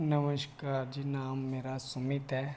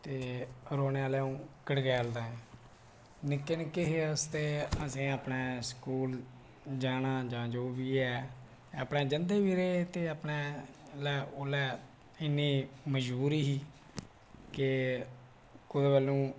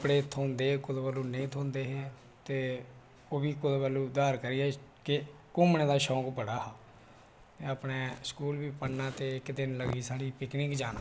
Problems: none marked